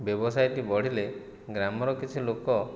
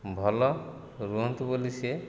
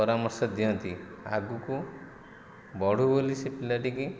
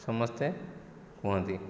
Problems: none marked